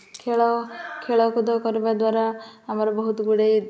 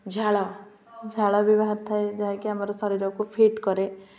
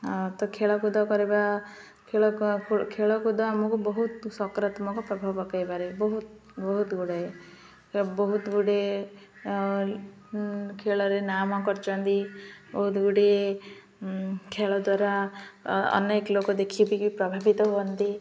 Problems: constant background noise, continuous background conversations